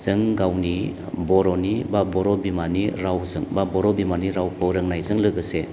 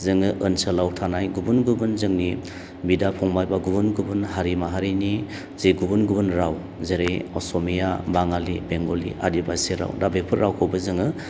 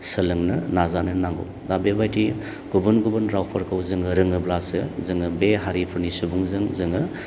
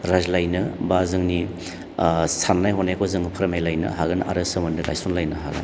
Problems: low volume